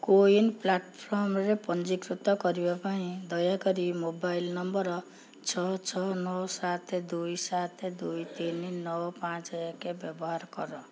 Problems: background sounds at intervals